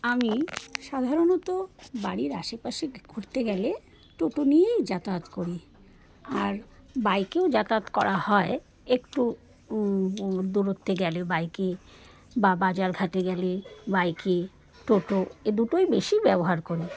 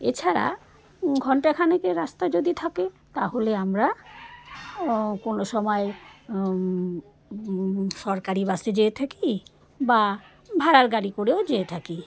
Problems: constant background noise